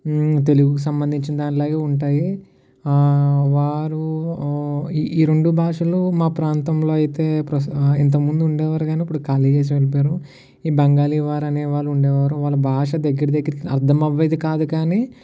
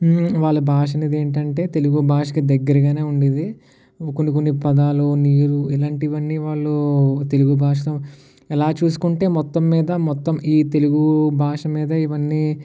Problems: none marked